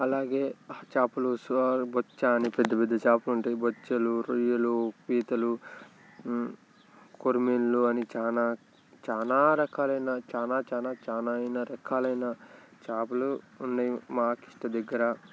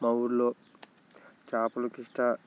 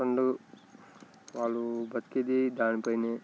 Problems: background sounds at intervals, continuous background conversations